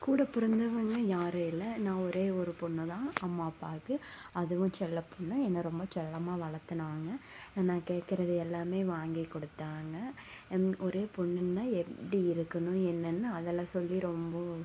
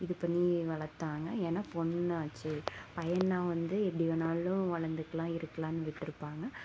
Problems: constant background noise